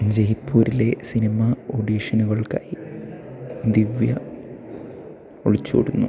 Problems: constant background noise